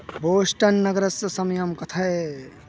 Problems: none marked